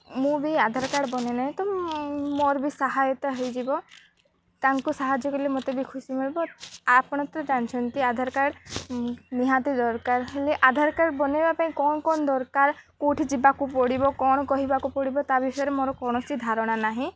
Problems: none marked